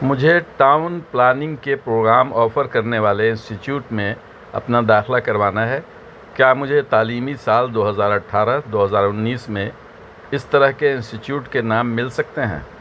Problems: constant background noise